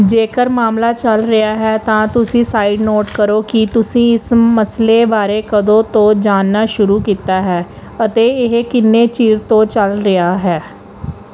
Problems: none marked